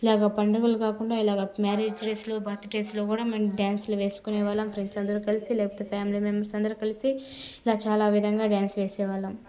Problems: background conversations at intervals, low volume